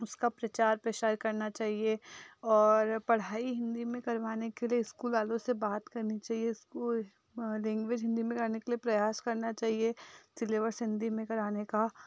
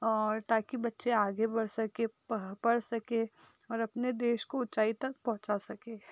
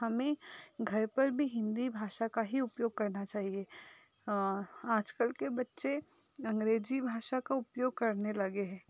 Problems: background sounds at intervals